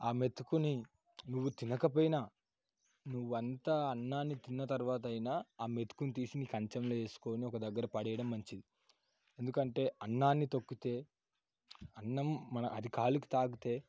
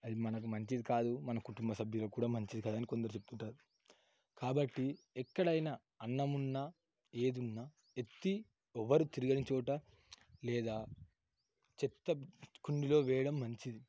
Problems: none marked